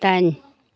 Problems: none marked